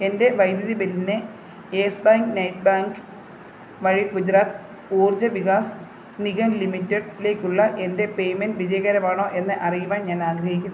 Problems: constant background noise